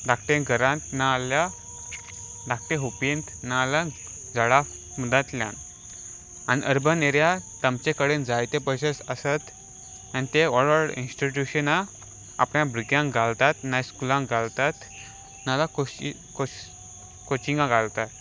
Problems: none marked